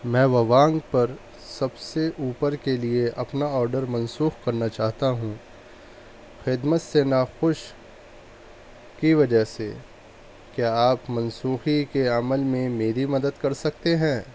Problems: none marked